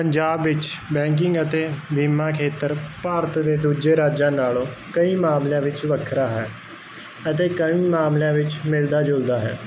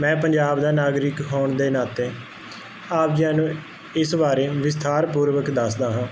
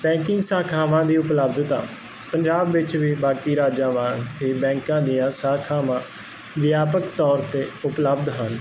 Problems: constant background noise